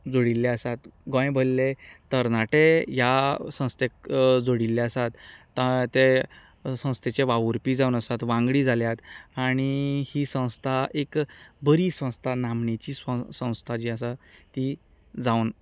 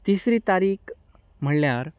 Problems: continuous background conversations